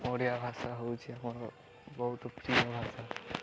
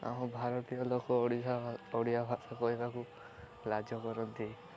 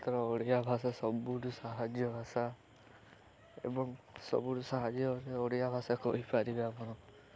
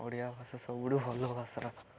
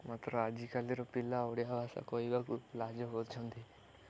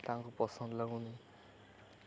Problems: constant background noise